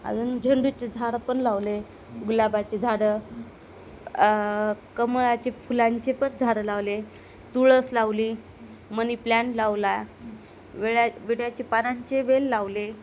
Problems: constant background noise